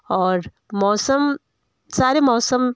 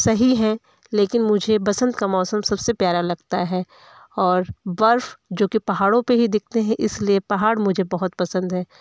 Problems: background conversations at intervals